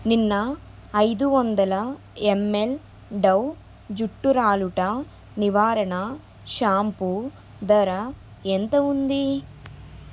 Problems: constant background noise